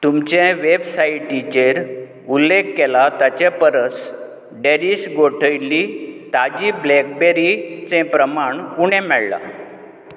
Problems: constant background noise